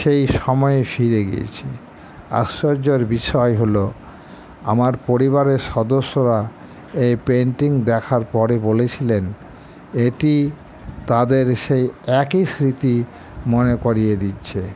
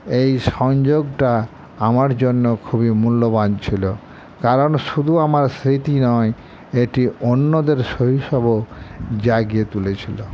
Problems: constant background noise